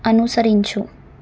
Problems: none marked